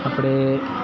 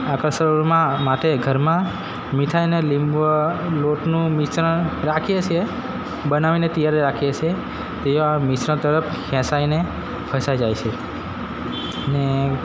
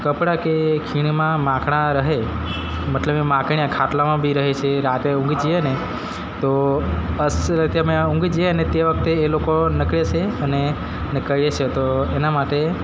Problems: constant background noise